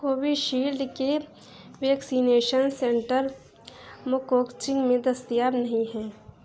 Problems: constant background noise